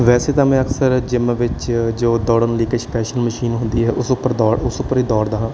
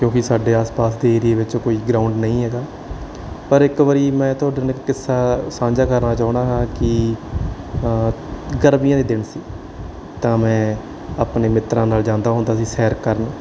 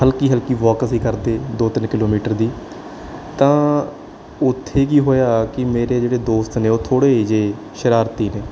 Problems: background sounds at intervals